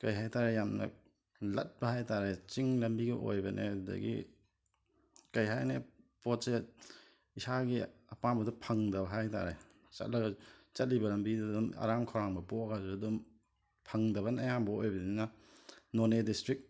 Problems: background sounds at intervals